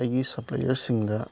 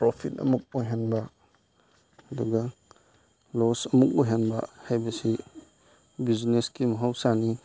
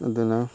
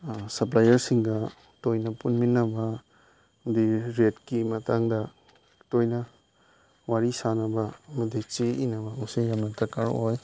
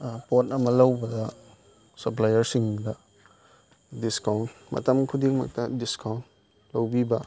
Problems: background sounds at intervals